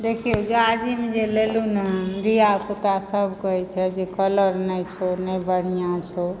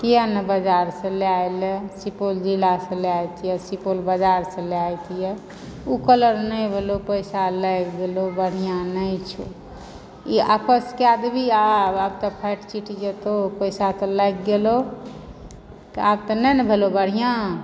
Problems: background sounds at intervals